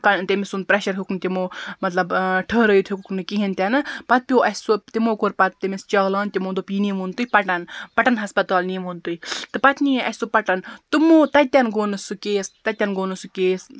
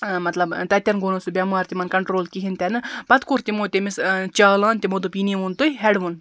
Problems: background sounds at intervals